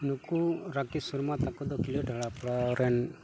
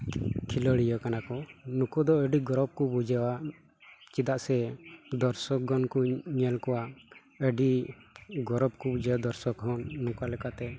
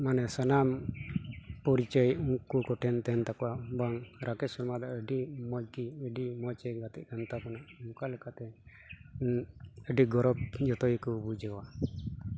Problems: background sounds at intervals